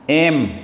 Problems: constant background noise